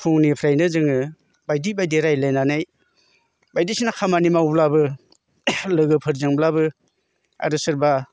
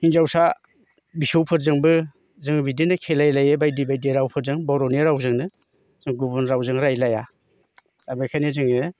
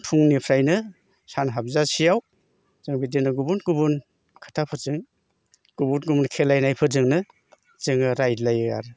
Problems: constant background noise